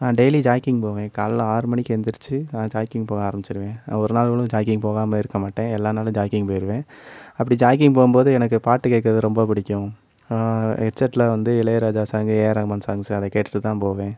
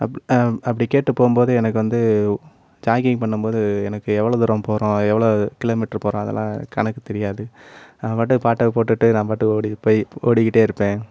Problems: background sounds at intervals